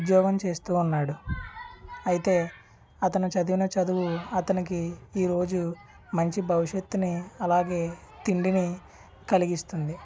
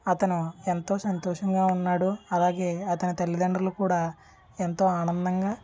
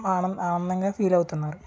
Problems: constant background noise, background conversations at intervals